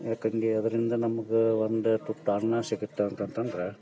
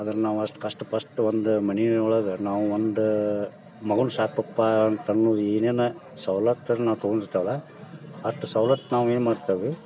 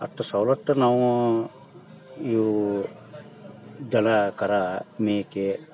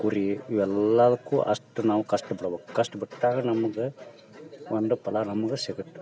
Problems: background sounds at intervals, background conversations at intervals